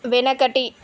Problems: constant background noise